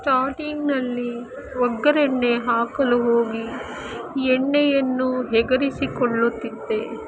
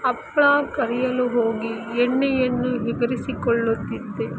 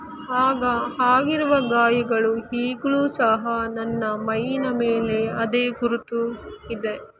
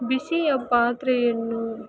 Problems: constant background noise